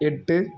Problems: background sounds at intervals